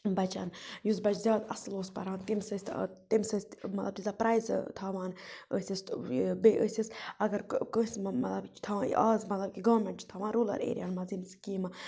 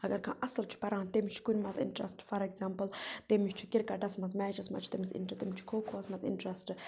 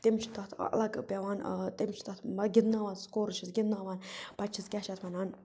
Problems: none marked